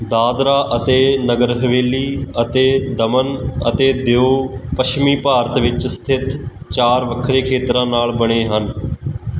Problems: none marked